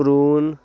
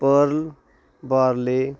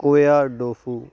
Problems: constant background noise